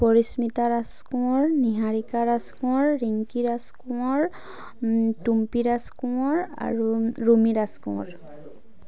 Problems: none marked